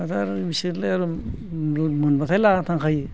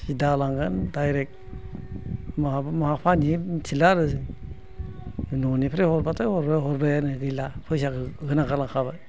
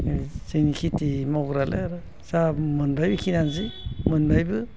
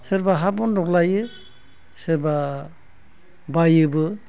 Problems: low volume